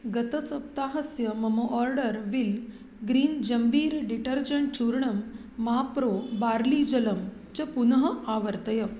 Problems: none marked